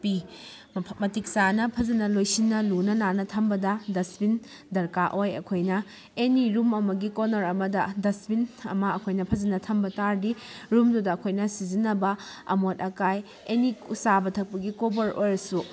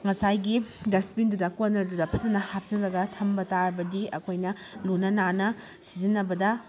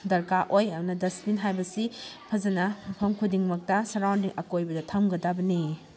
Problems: background conversations at intervals